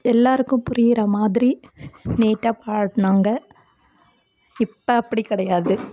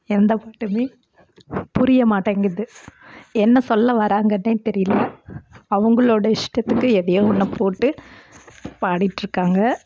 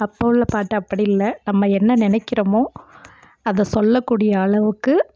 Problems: constant background noise